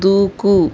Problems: none marked